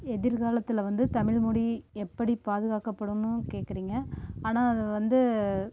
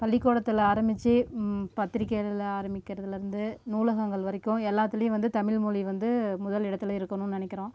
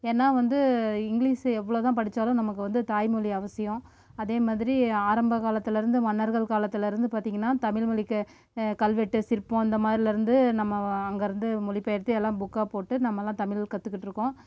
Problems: background sounds at intervals